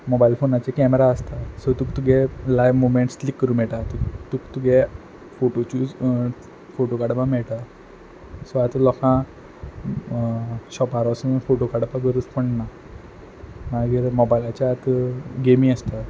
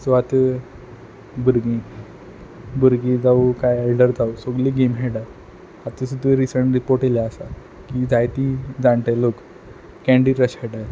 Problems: background sounds at intervals